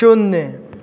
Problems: constant background noise